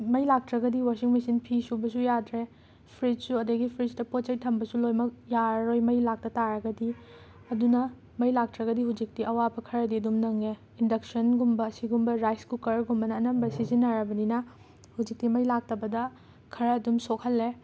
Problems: background sounds at intervals